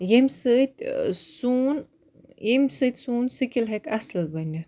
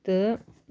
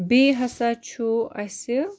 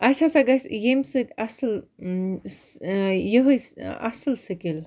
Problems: none marked